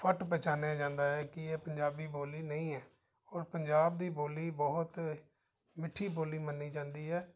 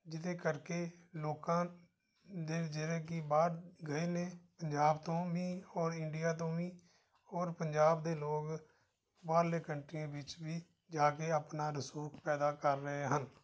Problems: background conversations at intervals